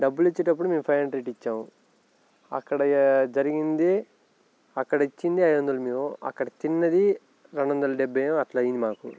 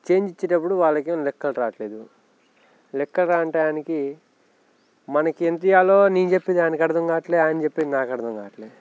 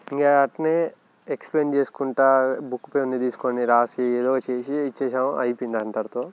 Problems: background sounds at intervals